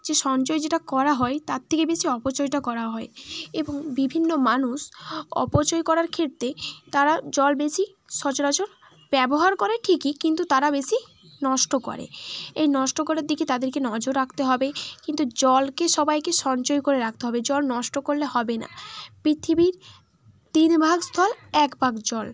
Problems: constant background noise